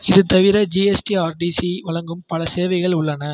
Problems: none marked